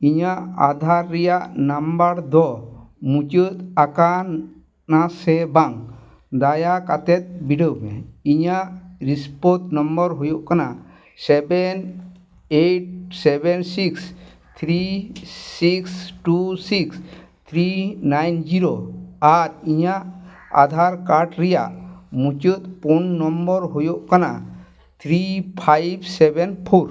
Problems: background sounds at intervals